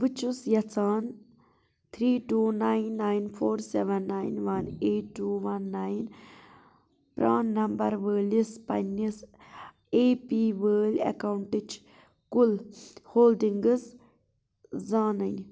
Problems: constant background noise